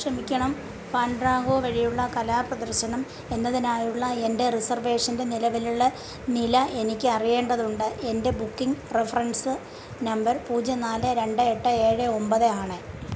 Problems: constant background noise